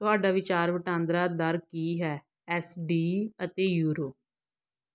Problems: none marked